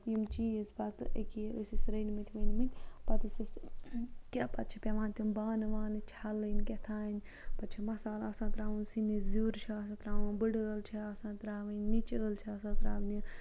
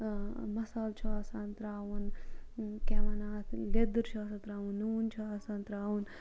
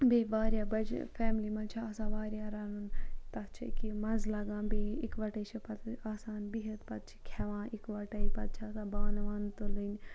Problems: background sounds at intervals, low volume